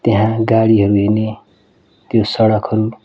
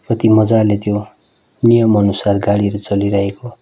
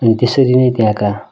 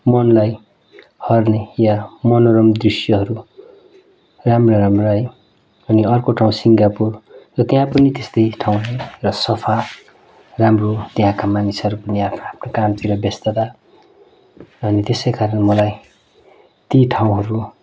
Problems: none marked